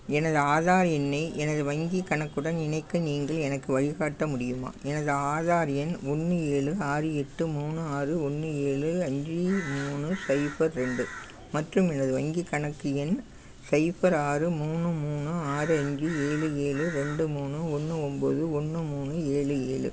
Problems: constant background noise